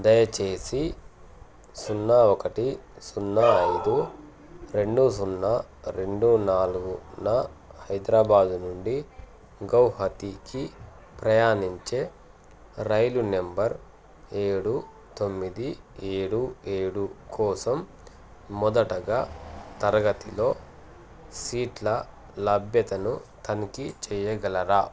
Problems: constant background noise